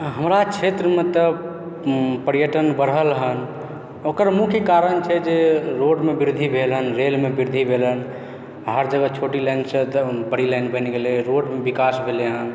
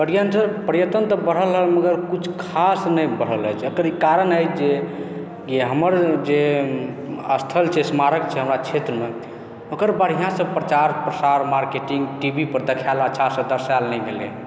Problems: background conversations at intervals